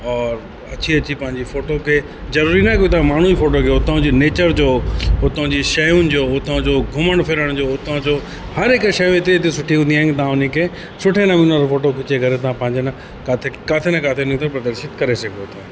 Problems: constant background noise, echo